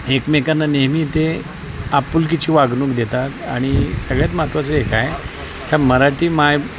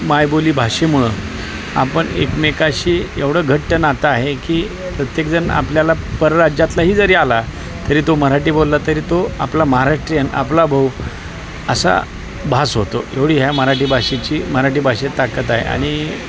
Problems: constant background noise, continuous background conversations